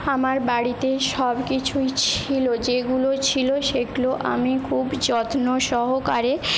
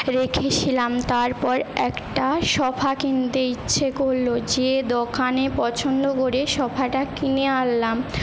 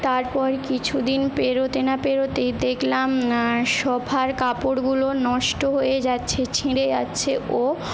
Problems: constant background noise